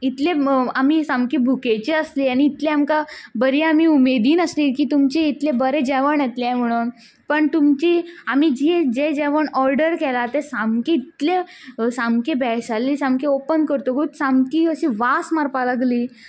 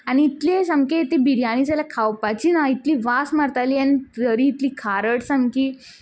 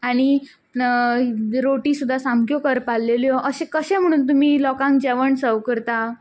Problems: background sounds at intervals